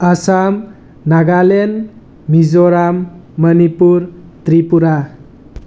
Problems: background sounds at intervals